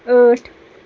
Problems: none marked